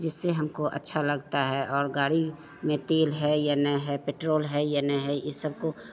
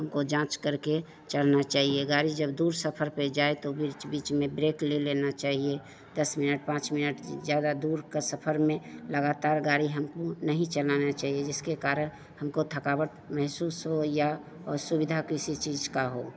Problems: constant background noise, continuous background conversations